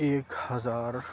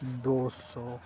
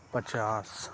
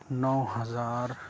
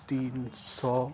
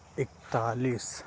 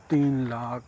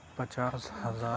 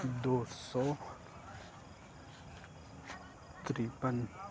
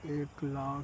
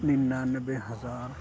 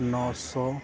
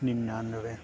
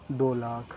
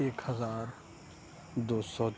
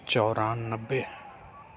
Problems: constant background noise, background conversations at intervals, low volume